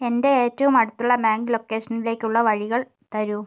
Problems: none marked